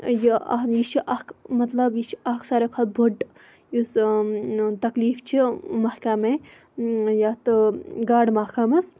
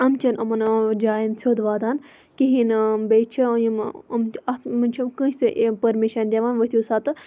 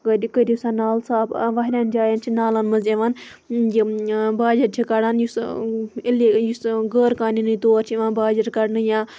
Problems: background sounds at intervals